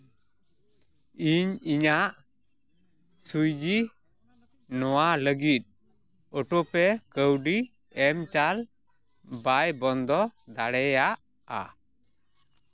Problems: none marked